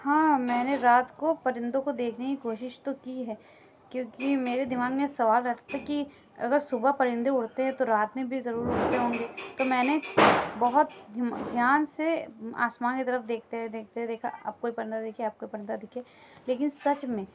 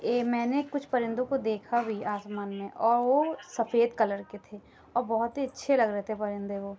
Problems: constant background noise